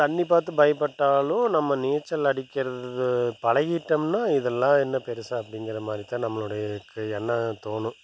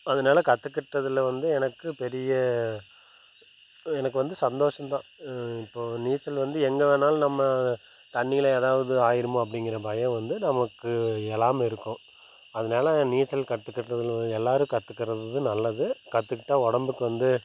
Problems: none marked